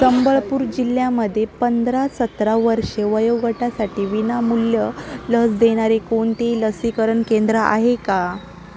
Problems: constant background noise, continuous background conversations